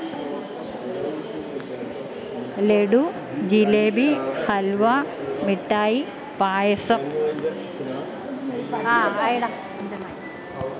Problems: continuous background conversations